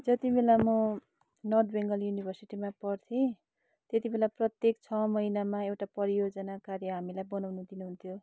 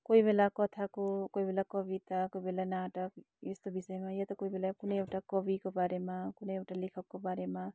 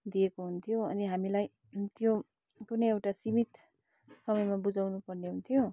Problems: none marked